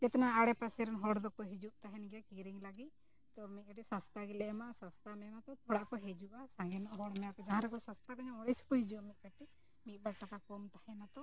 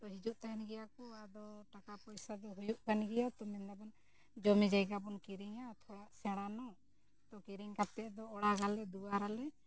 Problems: low volume